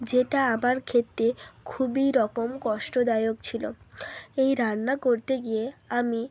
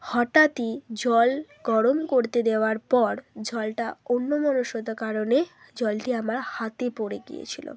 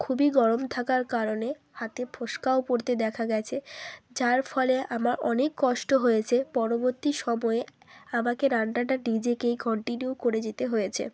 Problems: background sounds at intervals